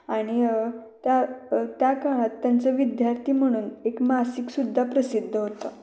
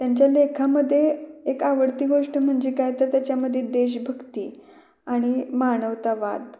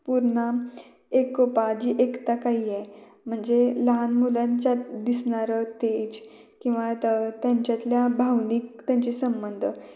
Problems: background conversations at intervals, echo